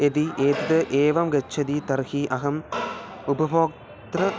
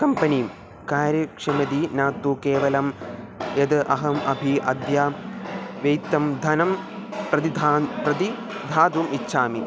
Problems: constant background noise